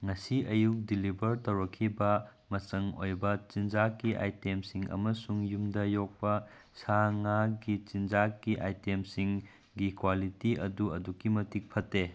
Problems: none marked